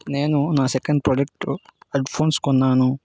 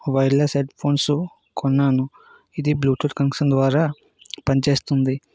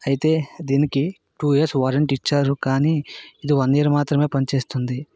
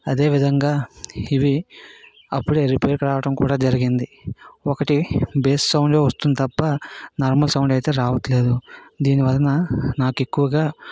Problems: none marked